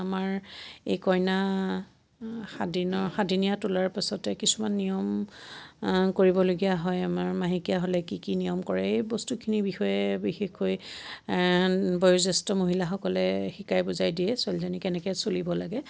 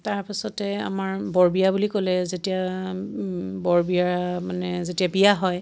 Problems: constant background noise